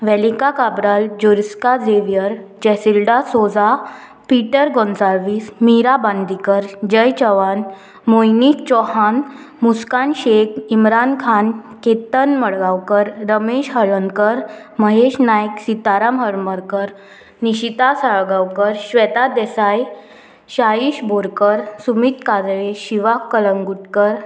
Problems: constant background noise